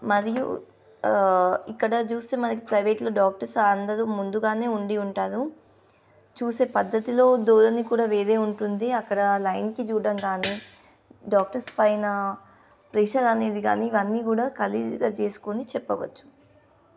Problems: constant background noise